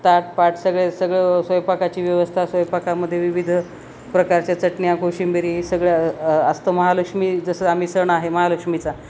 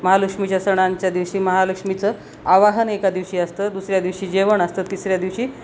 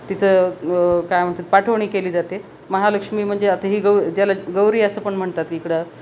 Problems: constant background noise